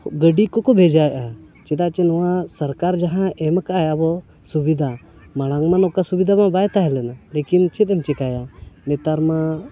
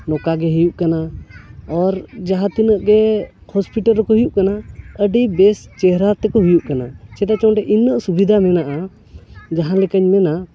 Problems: background conversations at intervals